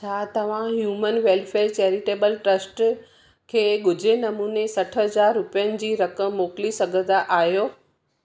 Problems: none marked